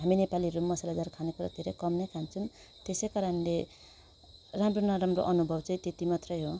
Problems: none marked